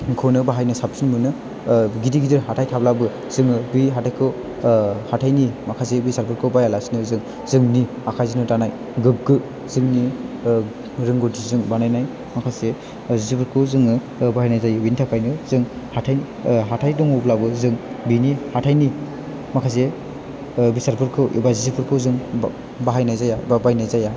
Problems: none marked